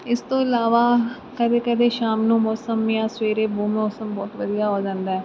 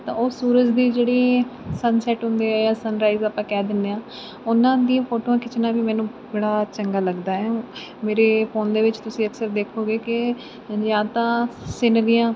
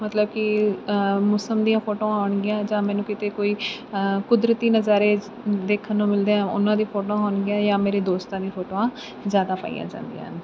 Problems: constant background noise